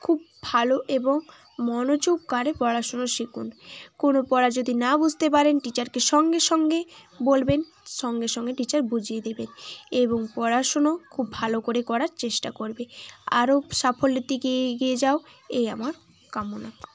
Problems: constant background noise, continuous background conversations